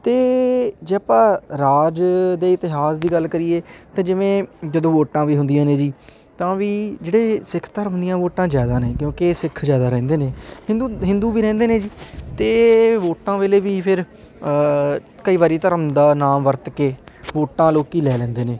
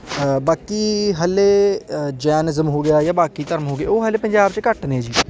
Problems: constant background noise, continuous background conversations